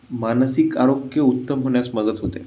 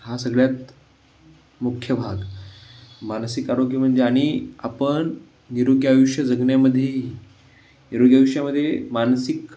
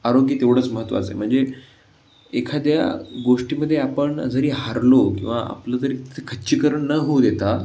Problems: background sounds at intervals